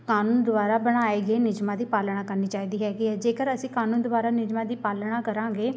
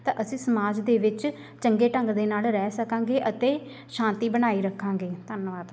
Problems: none marked